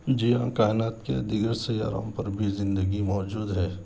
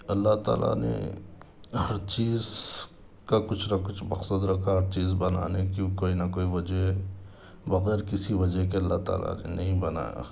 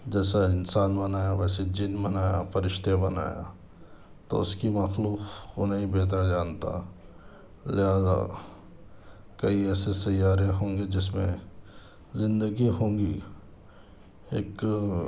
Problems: none marked